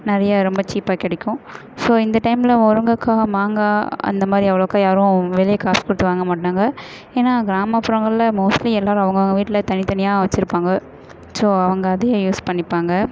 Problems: constant background noise, echo